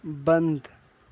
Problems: none marked